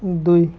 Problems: none marked